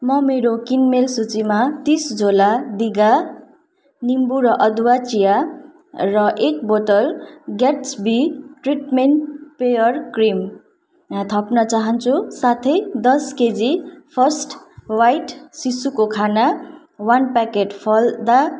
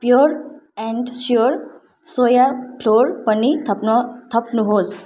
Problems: none marked